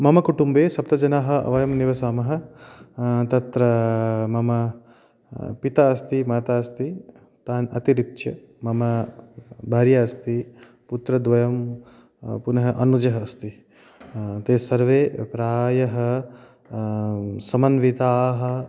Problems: background sounds at intervals